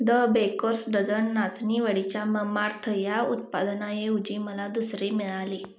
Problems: constant background noise